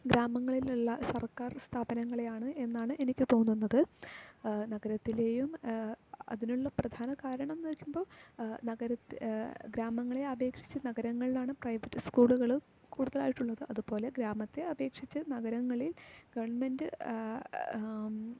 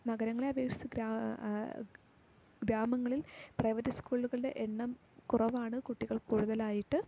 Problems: low volume